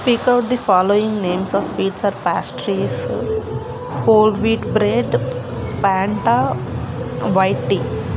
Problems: constant background noise